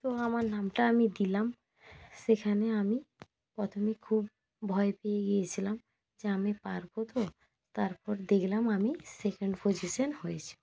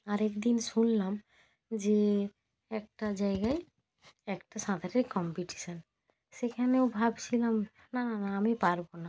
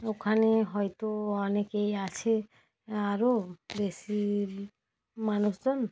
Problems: none marked